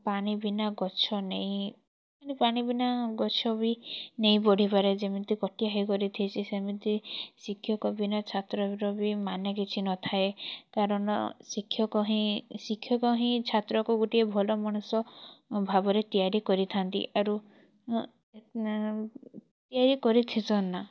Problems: none marked